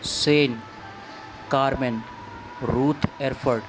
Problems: none marked